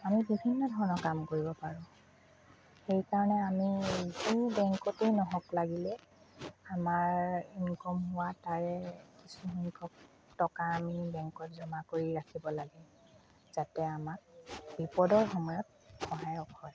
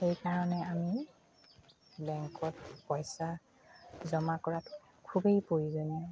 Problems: constant background noise, background conversations at intervals, low volume